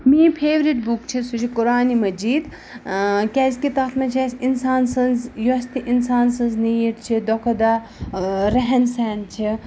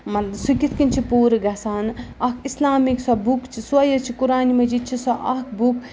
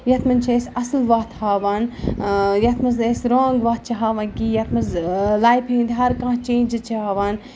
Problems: none marked